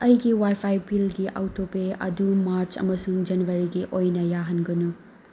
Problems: background sounds at intervals